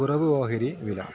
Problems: constant background noise